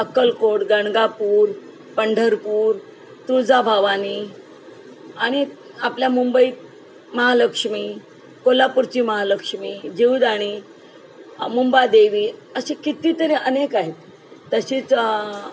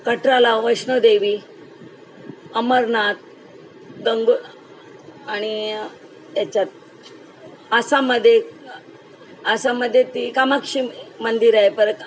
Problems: background sounds at intervals